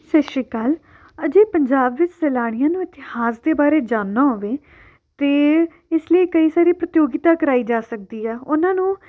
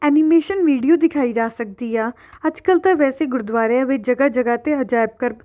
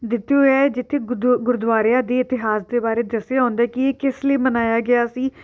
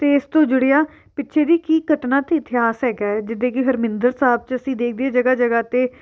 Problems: background sounds at intervals